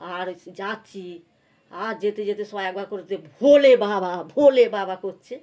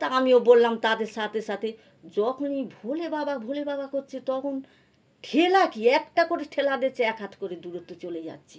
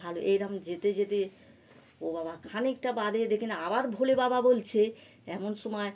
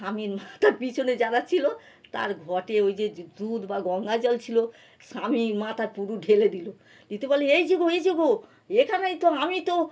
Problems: none marked